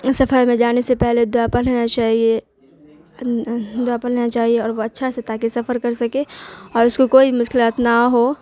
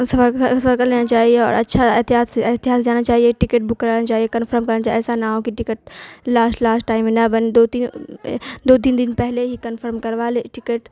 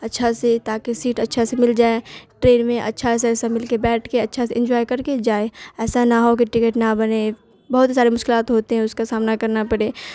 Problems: constant background noise